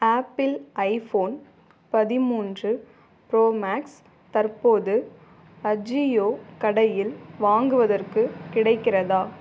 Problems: background sounds at intervals